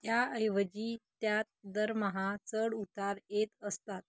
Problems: none marked